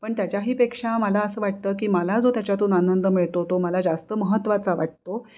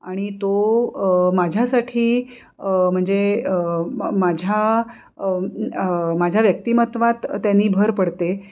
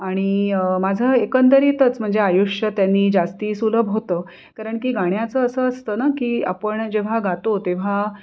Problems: none marked